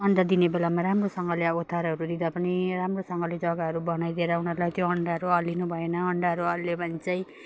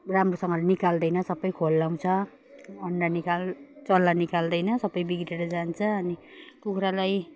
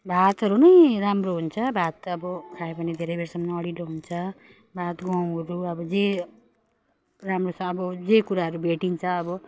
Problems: none marked